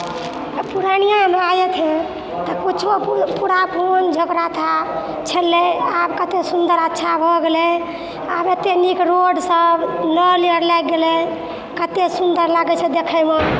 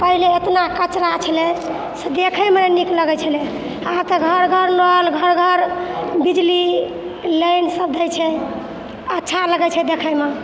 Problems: background sounds at intervals